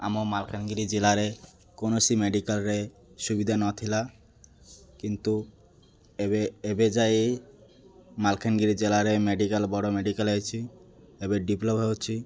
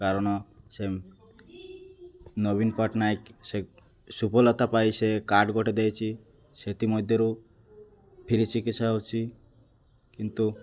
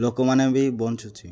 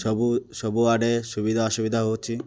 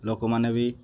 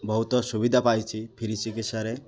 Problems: constant background noise, continuous background conversations